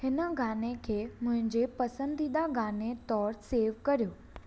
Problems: echo